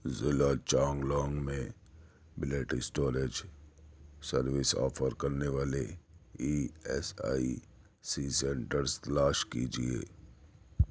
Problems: none marked